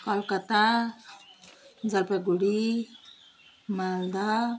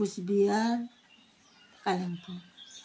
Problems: background sounds at intervals